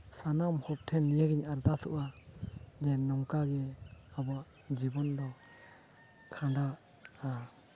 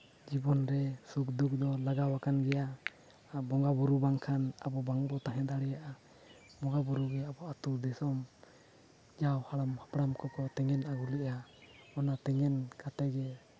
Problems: none marked